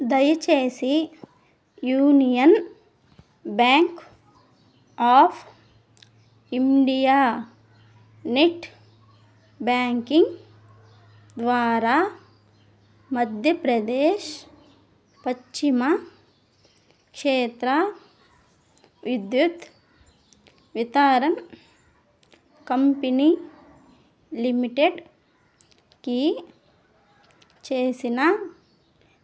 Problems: none marked